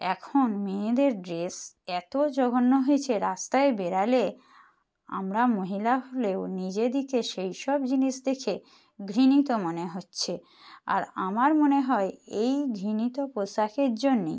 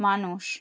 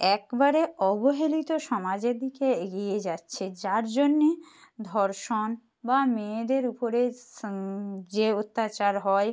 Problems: none marked